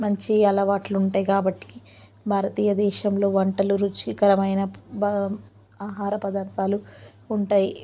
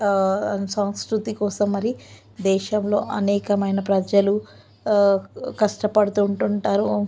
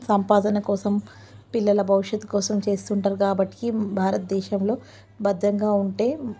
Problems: none marked